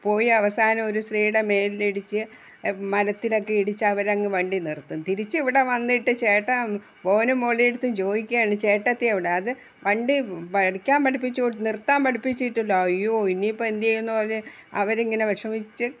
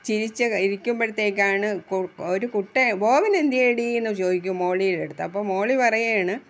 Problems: background sounds at intervals